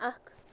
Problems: constant background noise